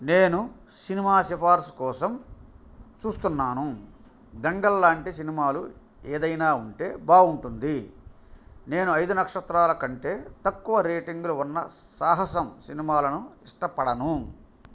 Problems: none marked